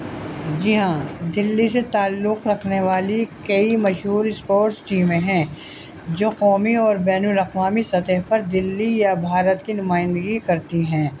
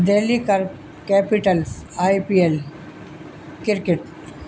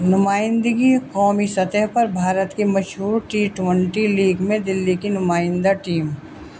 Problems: constant background noise